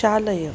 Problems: constant background noise